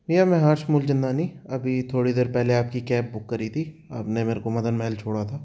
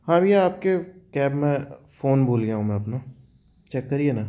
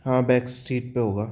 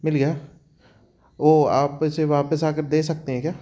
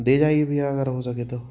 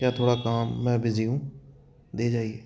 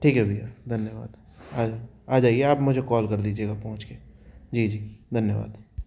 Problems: background sounds at intervals